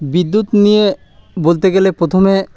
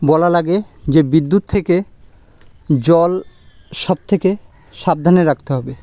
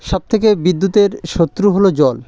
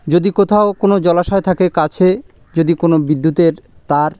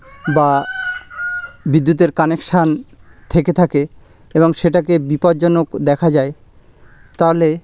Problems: background sounds at intervals